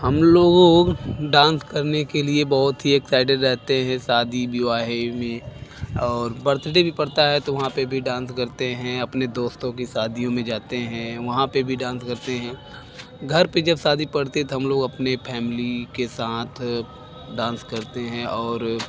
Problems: background sounds at intervals